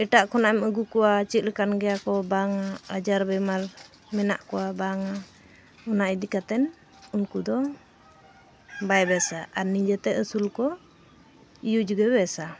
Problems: constant background noise